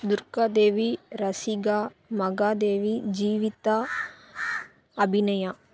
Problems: background sounds at intervals